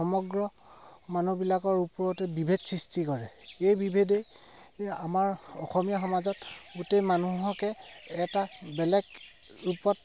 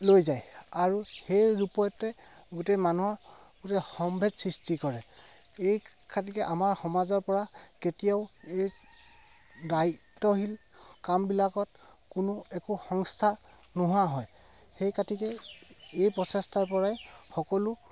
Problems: none marked